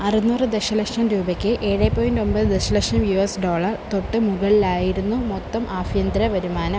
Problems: constant background noise